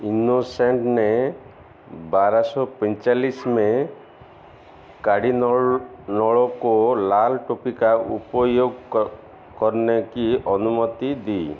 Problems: none marked